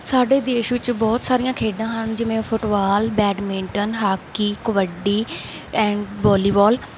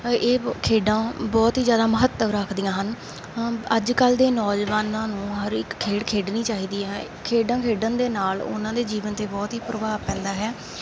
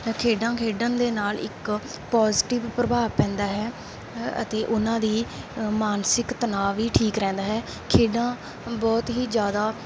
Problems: background sounds at intervals